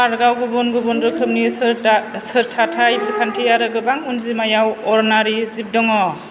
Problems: constant background noise